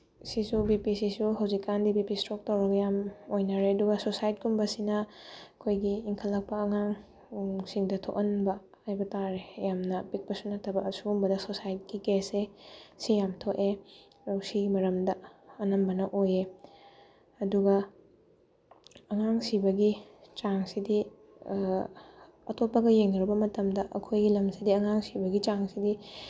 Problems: background sounds at intervals